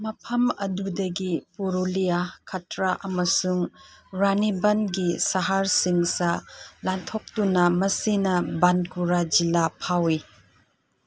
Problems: background sounds at intervals